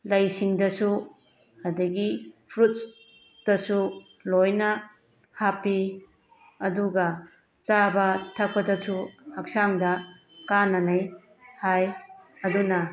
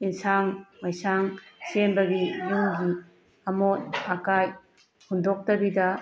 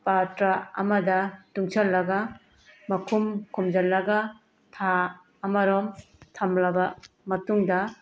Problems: background sounds at intervals